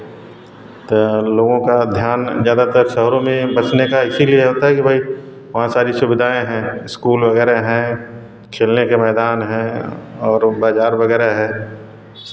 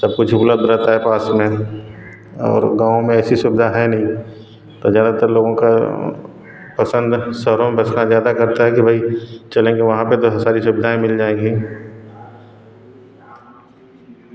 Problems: none marked